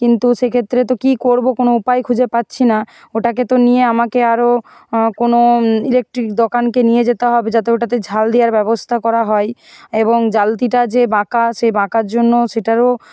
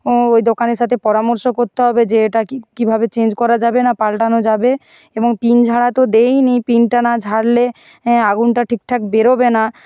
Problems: constant background noise